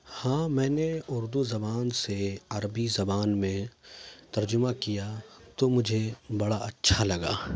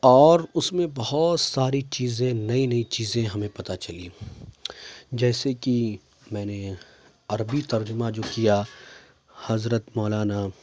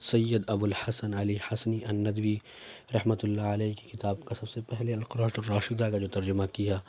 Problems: constant background noise